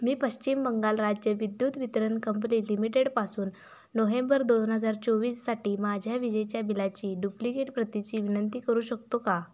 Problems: none marked